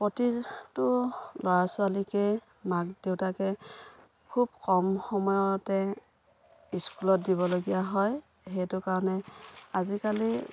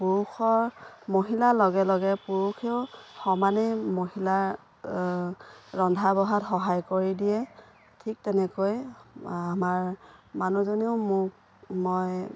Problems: none marked